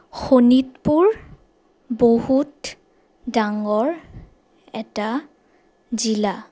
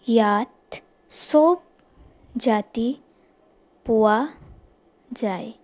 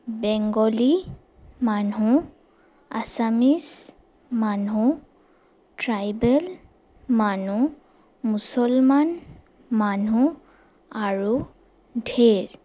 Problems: none marked